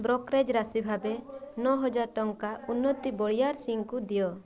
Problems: constant background noise